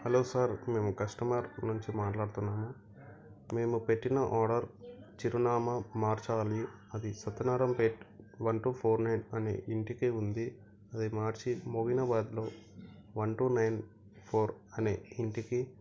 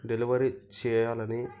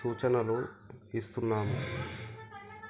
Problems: background sounds at intervals, background conversations at intervals